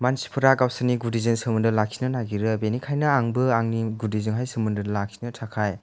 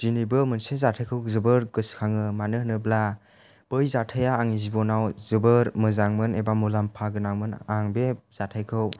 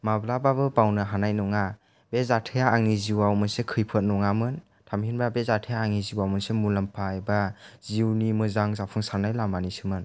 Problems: low volume